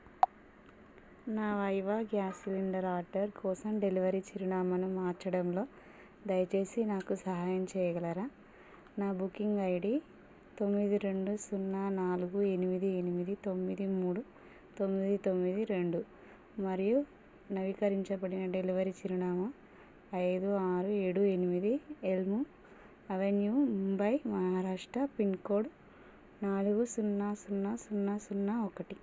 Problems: constant background noise, low volume